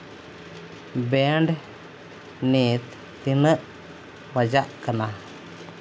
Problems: constant background noise